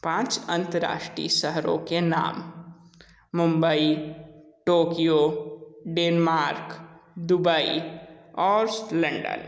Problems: echo